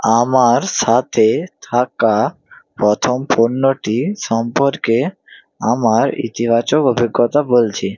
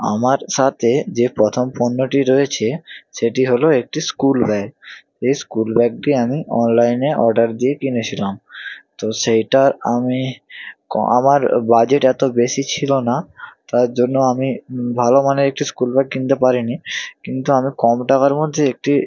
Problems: none marked